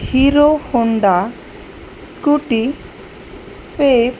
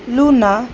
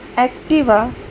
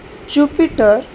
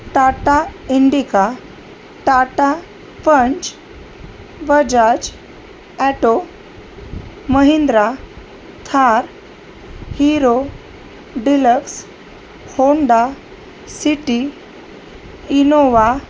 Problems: none marked